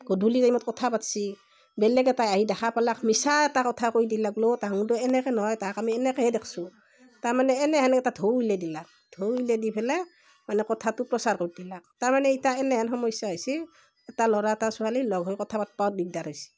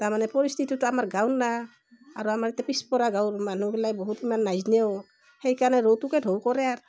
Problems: none marked